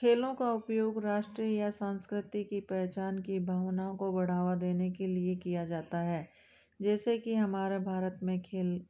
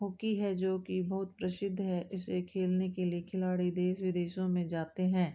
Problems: background sounds at intervals